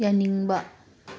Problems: none marked